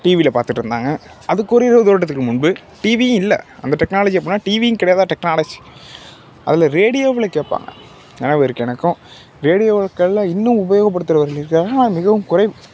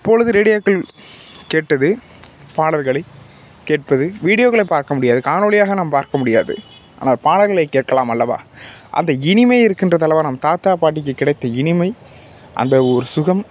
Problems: constant background noise